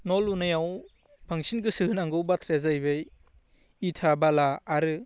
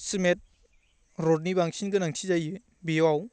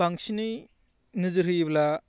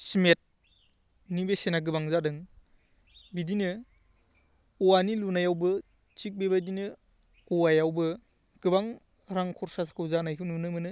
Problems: constant background noise